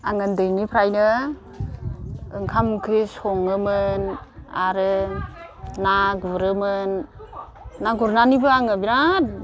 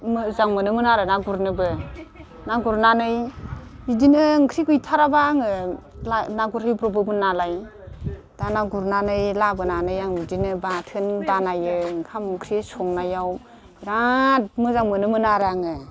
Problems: constant background noise